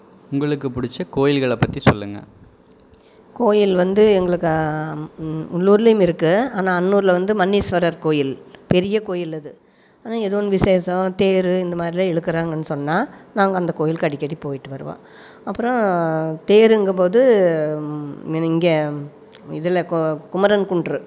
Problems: background sounds at intervals